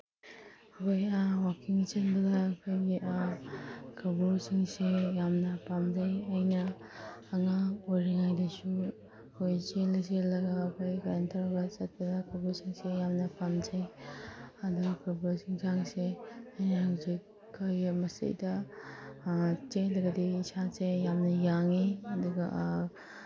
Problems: background sounds at intervals